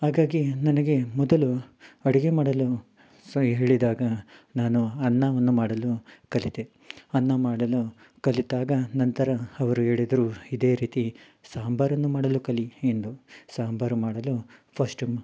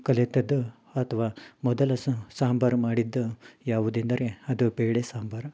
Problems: none marked